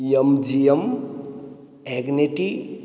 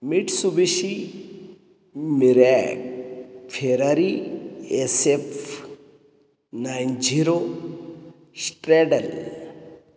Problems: none marked